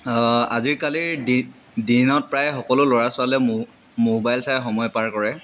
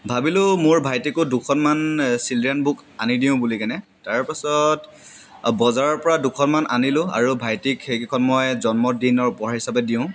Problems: none marked